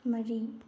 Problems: low volume